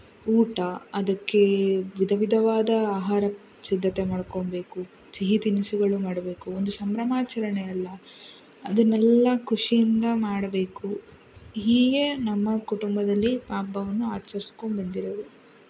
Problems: background sounds at intervals